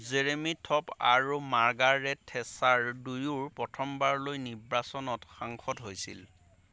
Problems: none marked